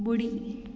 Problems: constant background noise, echo